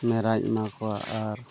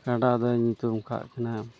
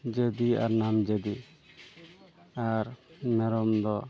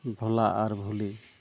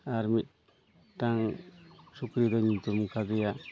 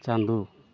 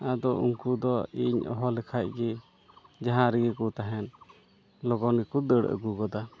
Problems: constant background noise, background conversations at intervals